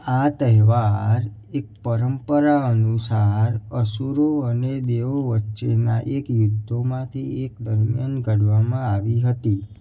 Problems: background sounds at intervals